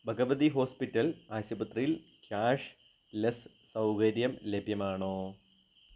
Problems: low volume